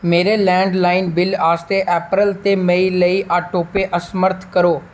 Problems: none marked